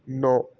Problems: none marked